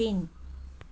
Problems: none marked